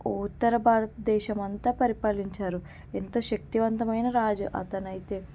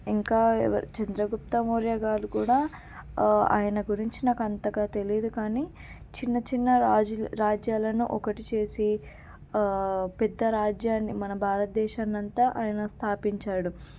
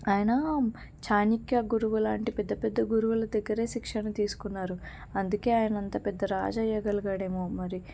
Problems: none marked